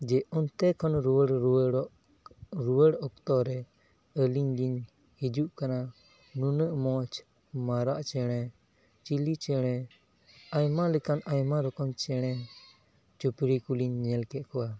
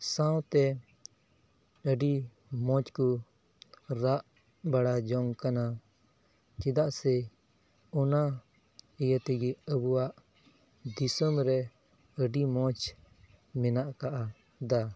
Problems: background sounds at intervals